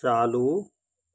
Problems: constant background noise